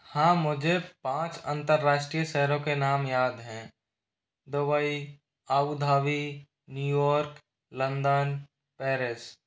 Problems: none marked